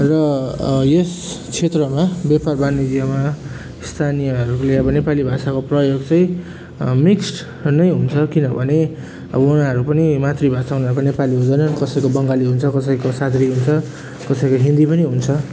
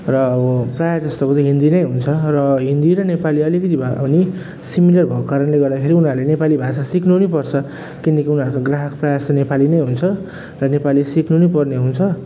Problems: background sounds at intervals